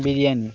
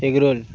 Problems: constant background noise